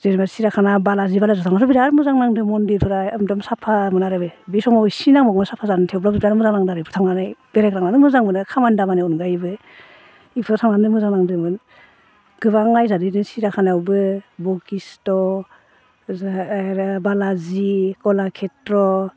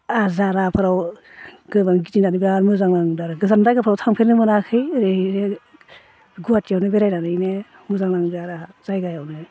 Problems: none marked